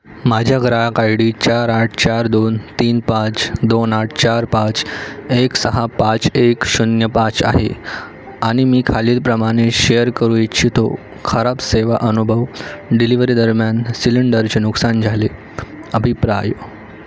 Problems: none marked